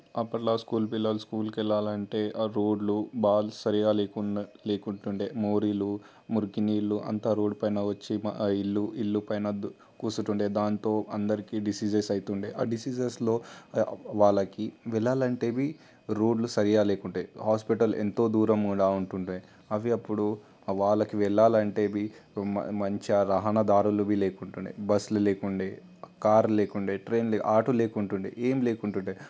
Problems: constant background noise